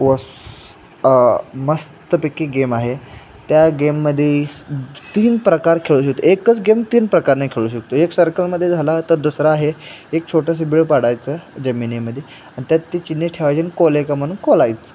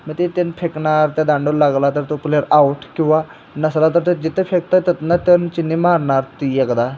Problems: none marked